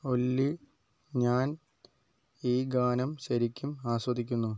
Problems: low volume